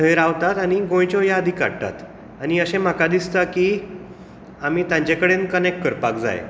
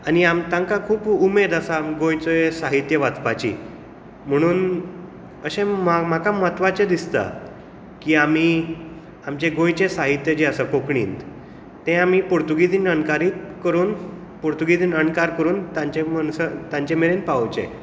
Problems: none marked